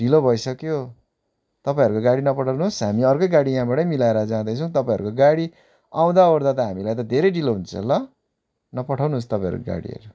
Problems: none marked